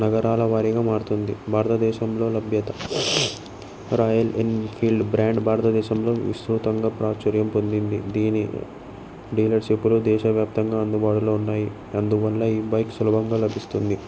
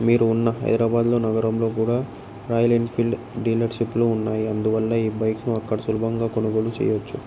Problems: background sounds at intervals